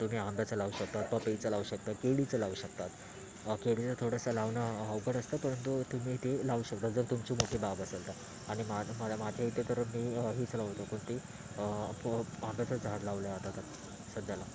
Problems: constant background noise, continuous background conversations